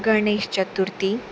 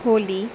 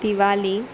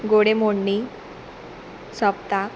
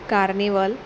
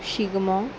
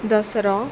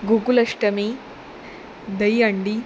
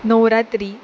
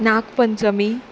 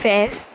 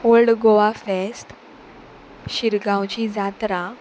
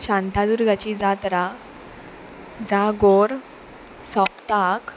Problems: constant background noise